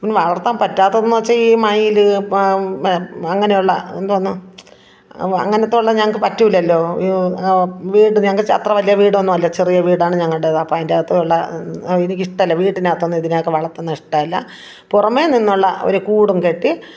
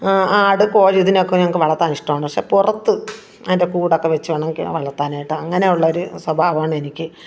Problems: background conversations at intervals